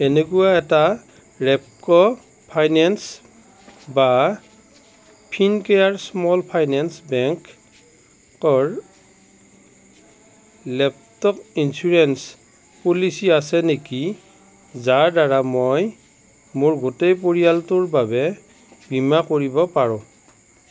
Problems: none marked